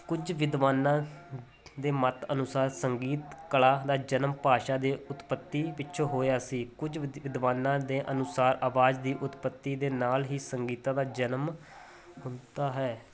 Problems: constant background noise